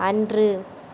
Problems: none marked